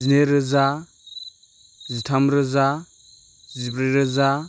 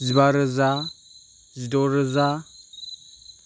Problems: background sounds at intervals